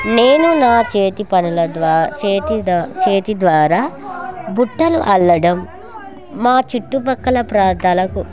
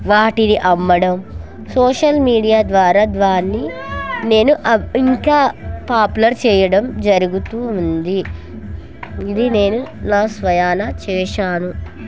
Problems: continuous background conversations